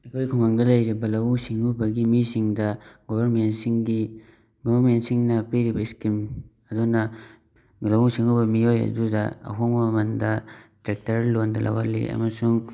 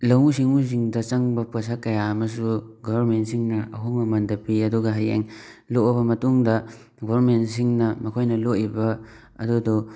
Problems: background sounds at intervals